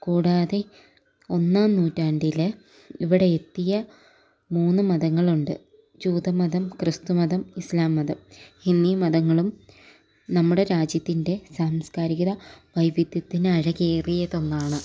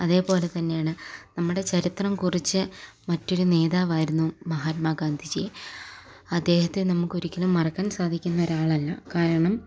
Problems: none marked